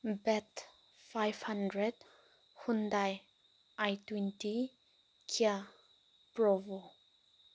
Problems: constant background noise